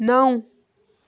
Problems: none marked